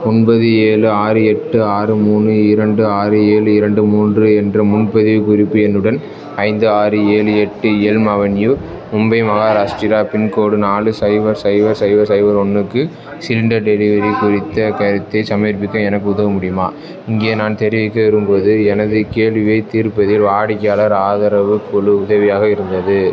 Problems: constant background noise, continuous background conversations